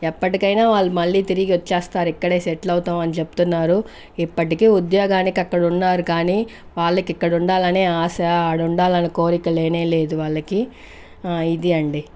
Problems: none marked